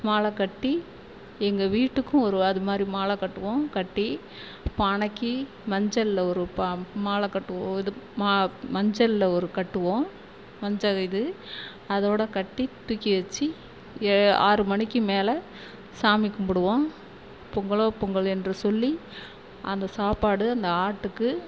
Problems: constant background noise